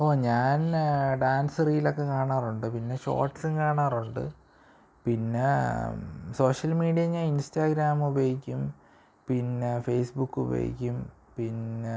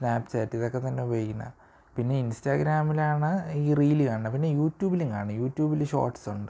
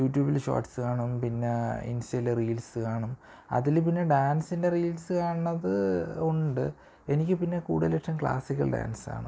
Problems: low volume